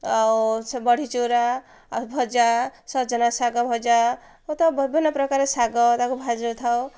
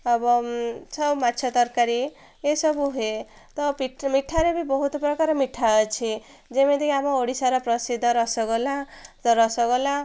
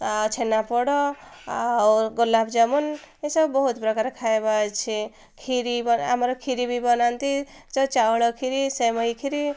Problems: none marked